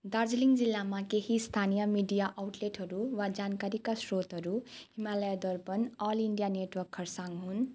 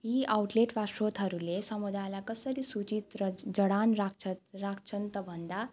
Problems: none marked